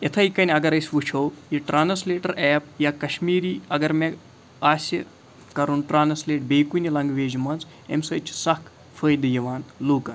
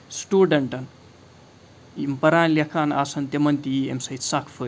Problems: background sounds at intervals